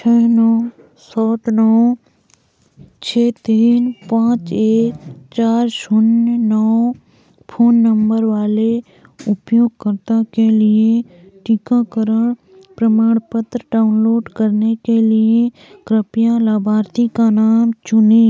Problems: constant background noise, background conversations at intervals